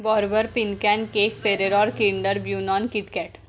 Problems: background sounds at intervals, background conversations at intervals